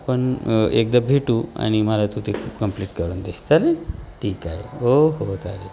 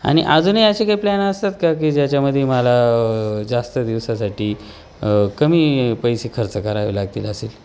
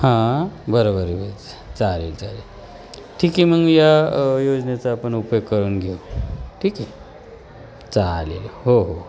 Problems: constant background noise